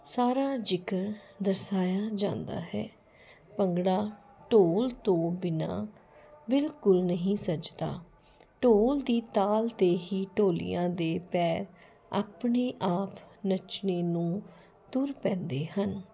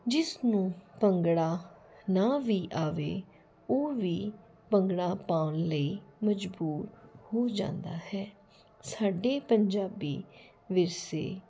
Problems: none marked